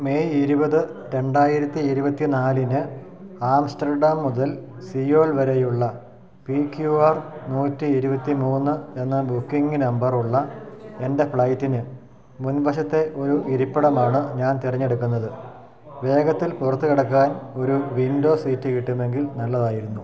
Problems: continuous background conversations, low volume